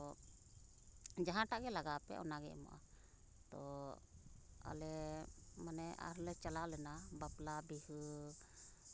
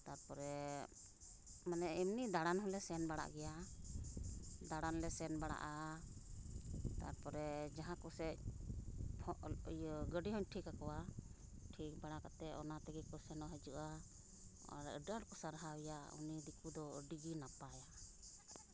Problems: constant background noise, background conversations at intervals